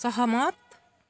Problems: background sounds at intervals